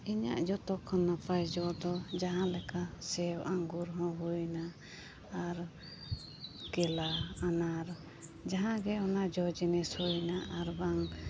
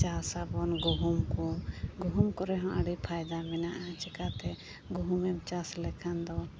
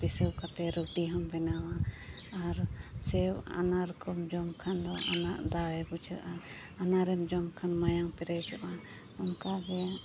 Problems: constant background noise